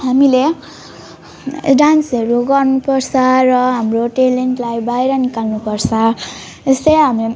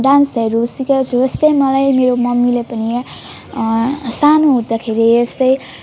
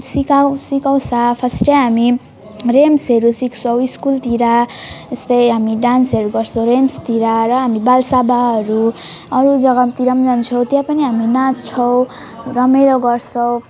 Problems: continuous background conversations